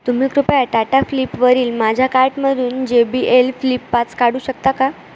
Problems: constant background noise